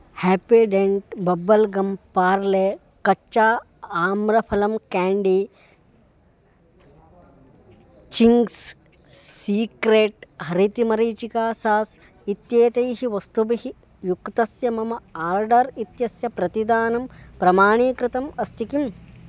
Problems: constant background noise